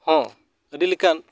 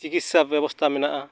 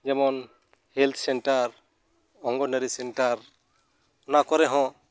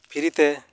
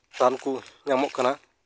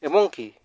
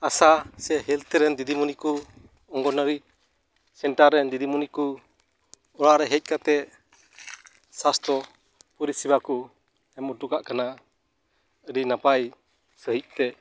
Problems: background sounds at intervals